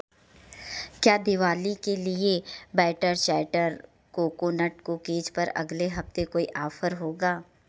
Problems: background sounds at intervals